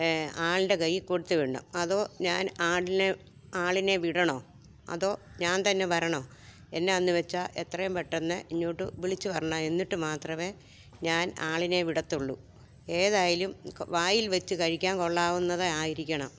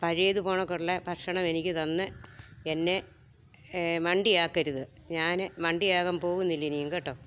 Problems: none marked